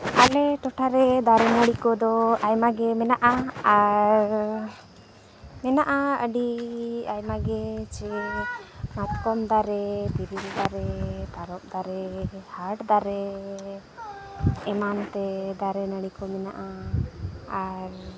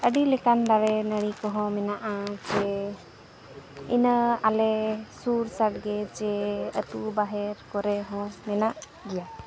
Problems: constant background noise, background conversations at intervals